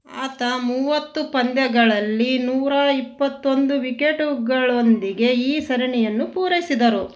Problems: none marked